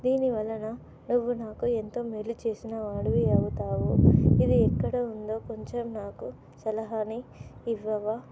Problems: none marked